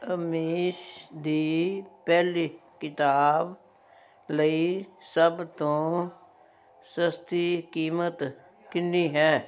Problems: none marked